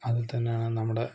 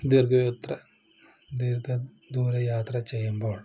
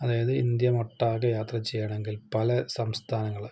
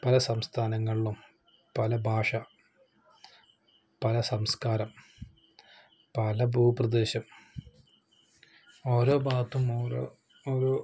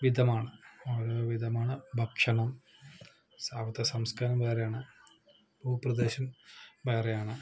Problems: low volume